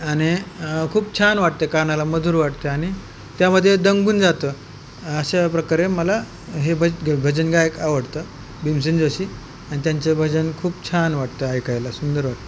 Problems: constant background noise